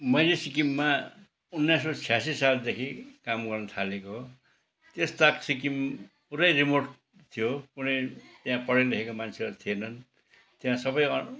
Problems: background sounds at intervals, background conversations at intervals